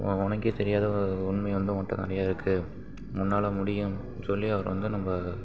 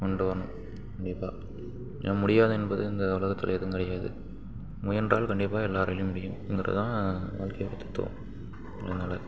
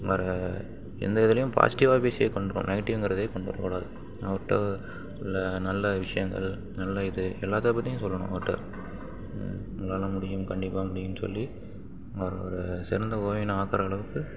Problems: background sounds at intervals